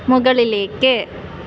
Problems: constant background noise